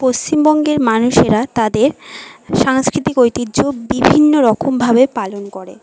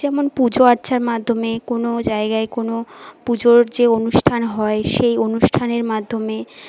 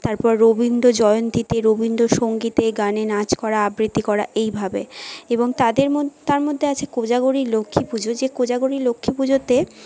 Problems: background sounds at intervals, continuous background conversations